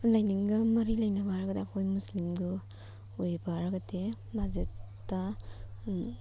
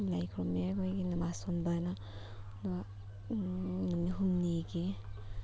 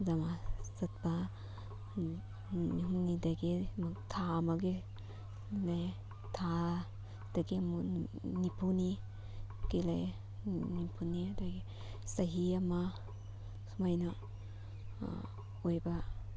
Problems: background sounds at intervals